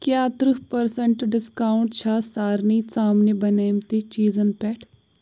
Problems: background sounds at intervals